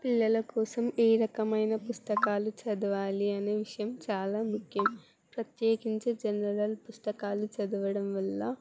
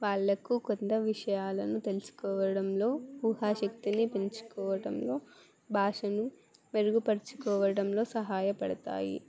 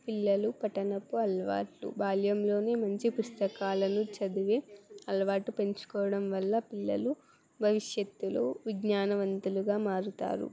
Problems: background sounds at intervals, background conversations at intervals